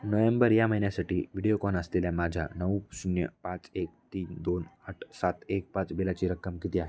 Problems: none marked